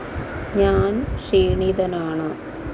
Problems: constant background noise